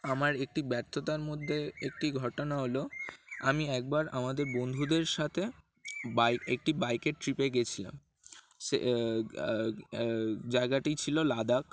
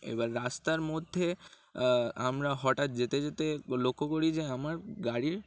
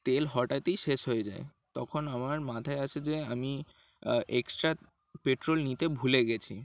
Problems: constant background noise